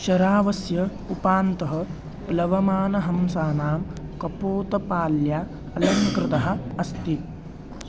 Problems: background sounds at intervals